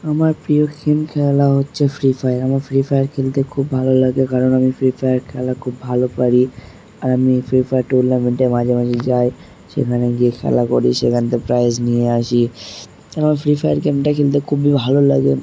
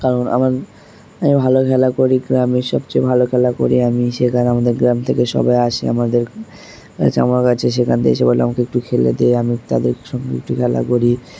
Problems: background sounds at intervals